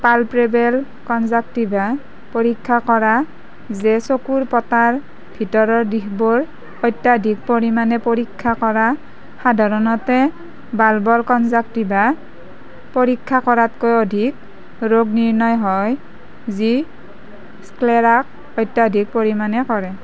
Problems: constant background noise